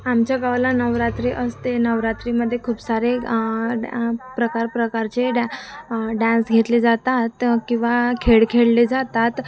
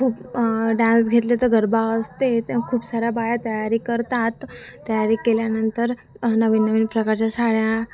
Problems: constant background noise, continuous background conversations